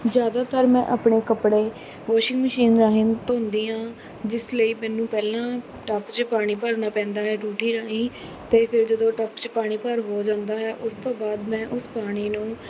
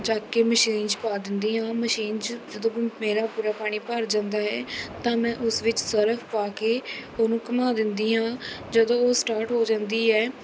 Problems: background sounds at intervals